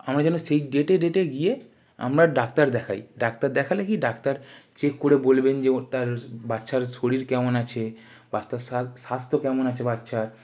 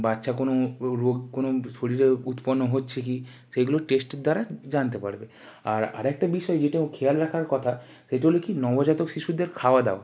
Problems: background sounds at intervals